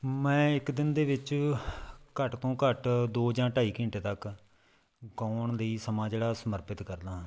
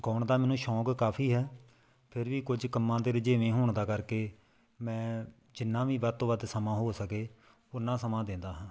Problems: background conversations at intervals